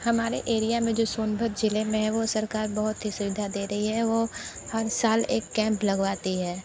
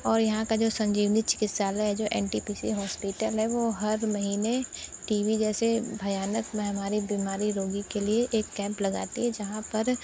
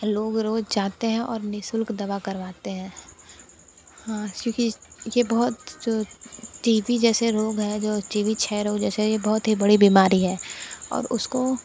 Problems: constant background noise